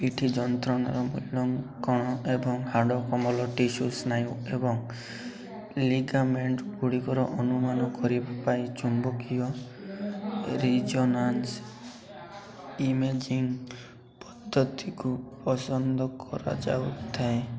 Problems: constant background noise, continuous background conversations